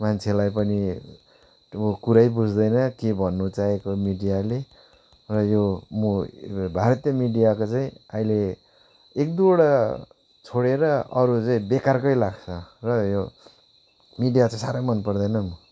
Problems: background sounds at intervals